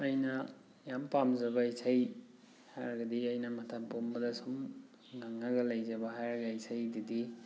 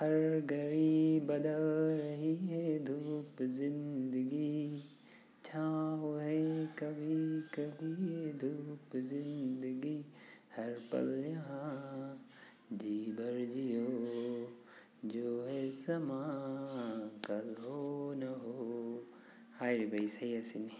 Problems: background sounds at intervals